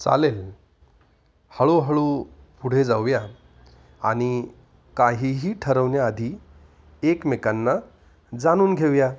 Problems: constant background noise, echo, low volume